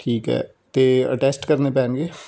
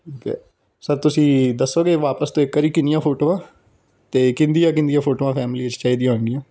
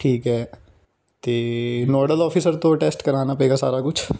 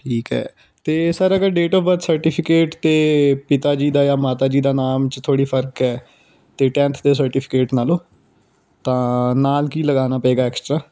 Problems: background conversations at intervals